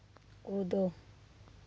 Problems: background sounds at intervals